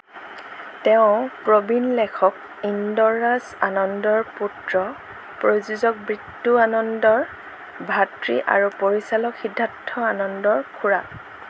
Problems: none marked